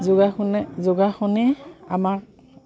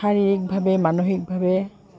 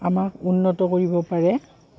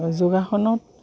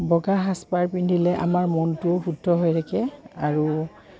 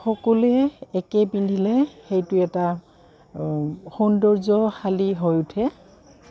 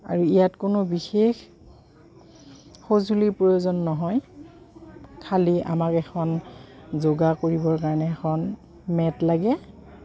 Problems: background sounds at intervals